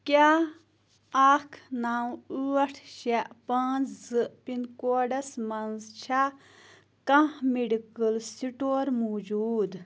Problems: constant background noise